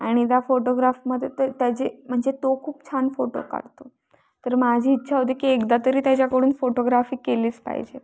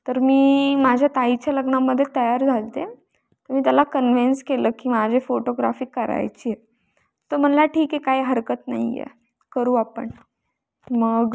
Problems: background sounds at intervals